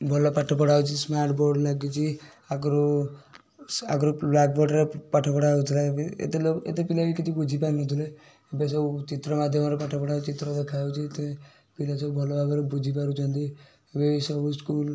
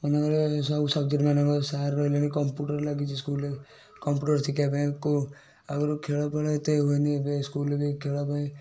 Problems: none marked